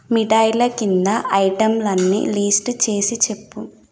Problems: background sounds at intervals